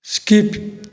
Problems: none marked